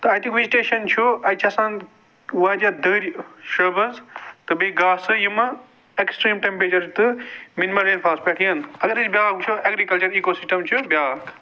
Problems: background sounds at intervals